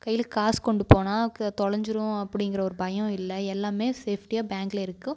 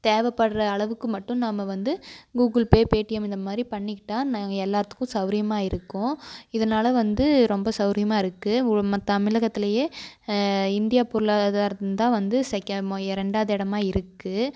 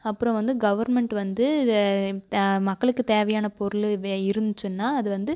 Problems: constant background noise